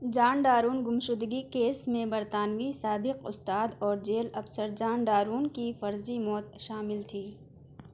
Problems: background sounds at intervals